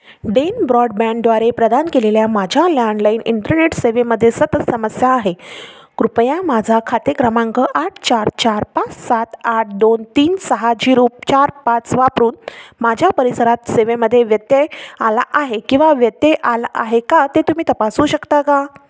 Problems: background sounds at intervals